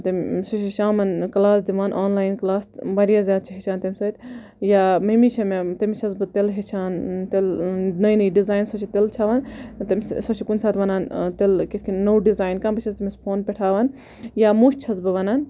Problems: none marked